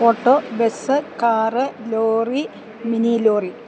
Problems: constant background noise